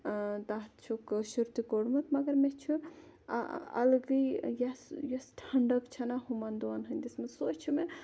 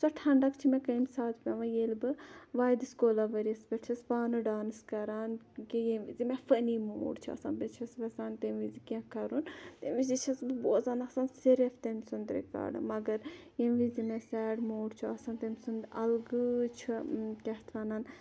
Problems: none marked